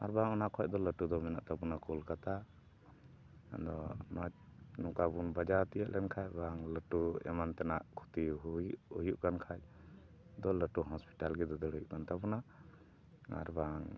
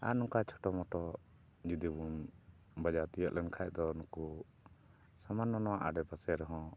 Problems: background sounds at intervals